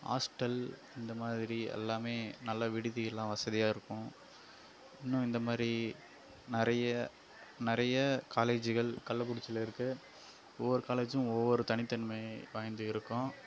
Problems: background sounds at intervals, low volume